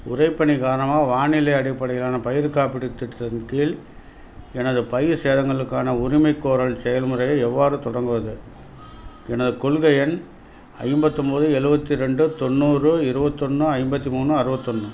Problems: background sounds at intervals